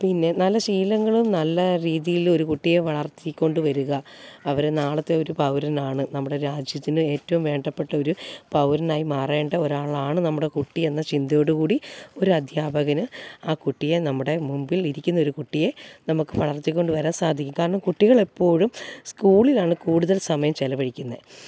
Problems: background sounds at intervals